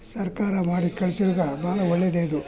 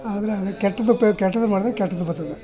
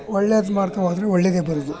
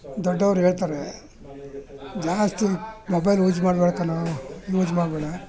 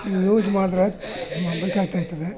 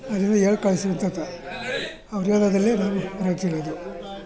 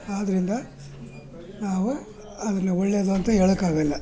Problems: background conversations at intervals